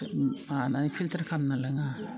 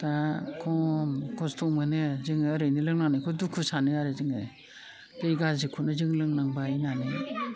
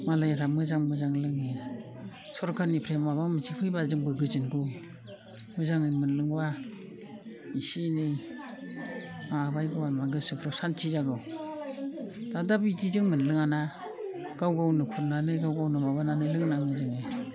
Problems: low volume